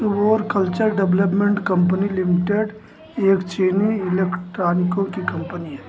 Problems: constant background noise